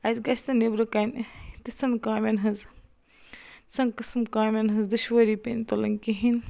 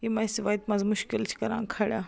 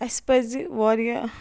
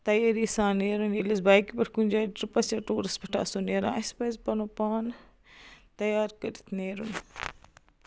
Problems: constant background noise